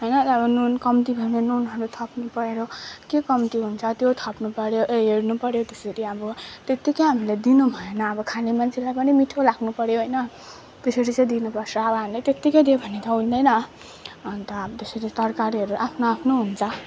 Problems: constant background noise, background conversations at intervals